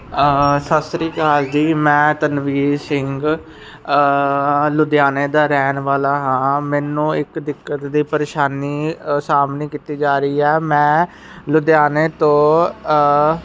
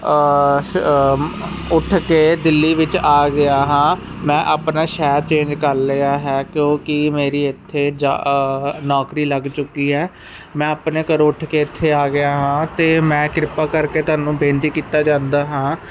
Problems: constant background noise